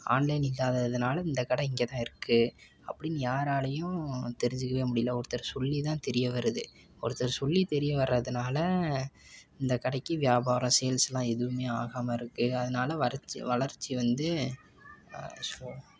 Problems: background conversations at intervals